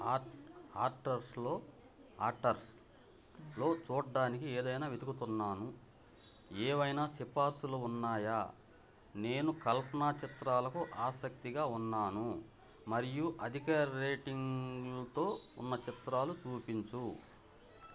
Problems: none marked